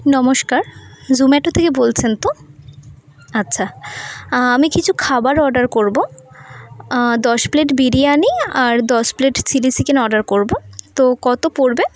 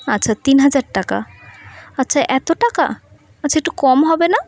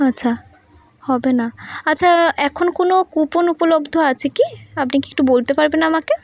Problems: constant background noise